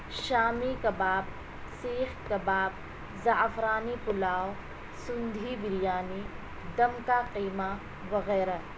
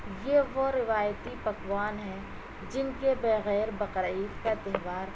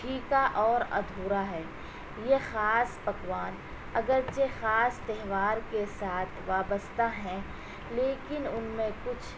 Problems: constant background noise